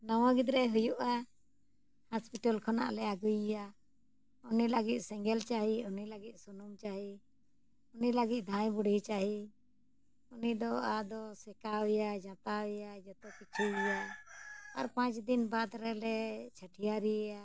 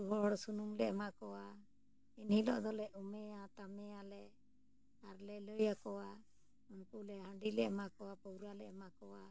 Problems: none marked